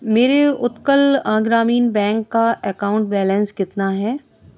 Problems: background sounds at intervals